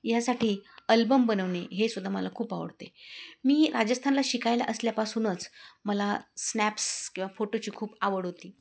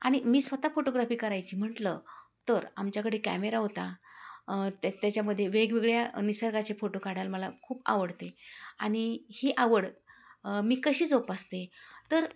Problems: none marked